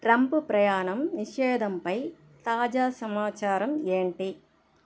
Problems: constant background noise